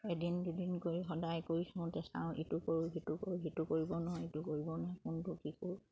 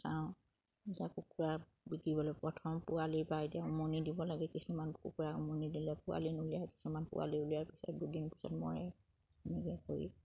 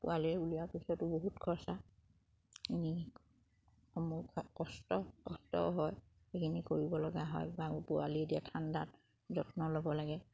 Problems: background sounds at intervals, background conversations at intervals